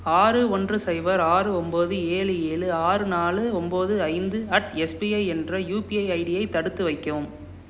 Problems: none marked